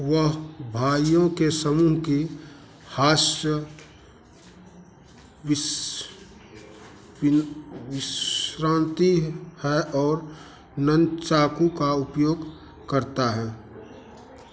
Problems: constant background noise